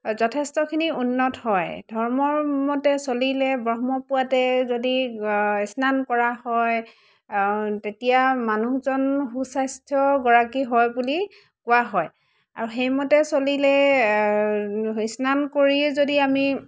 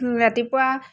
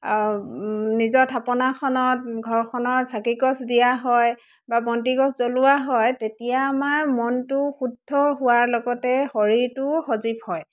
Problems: constant background noise